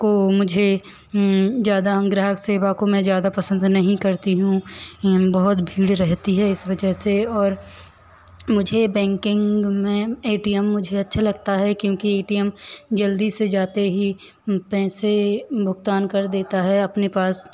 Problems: none marked